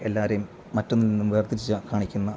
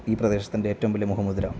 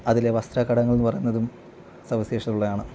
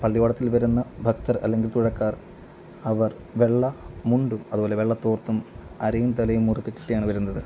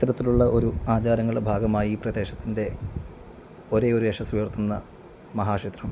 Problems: none marked